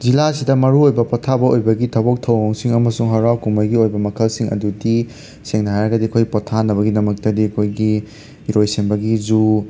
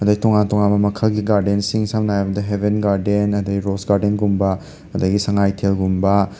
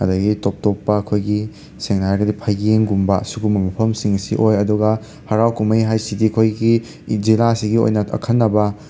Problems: constant background noise